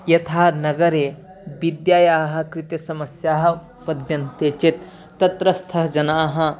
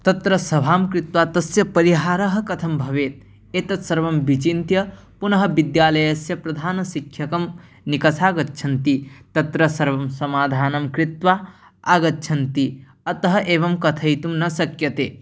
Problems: background sounds at intervals